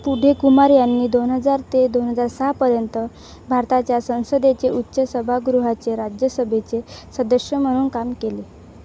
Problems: none marked